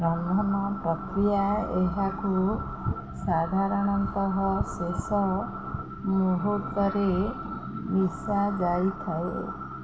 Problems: none marked